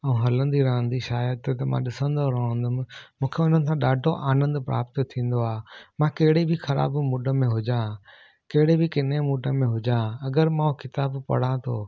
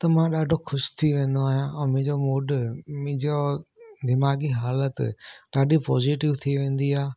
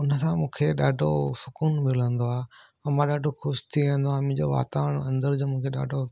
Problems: none marked